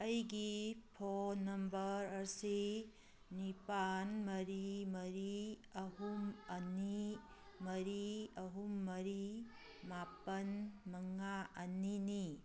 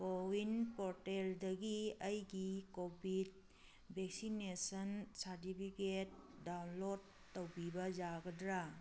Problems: background sounds at intervals